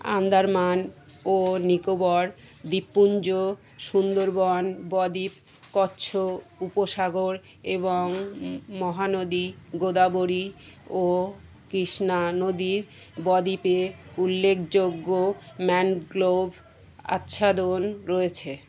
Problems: constant background noise, background conversations at intervals